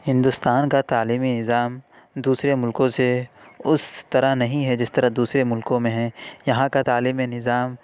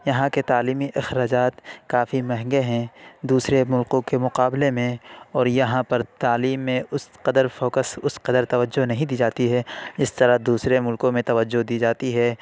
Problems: none marked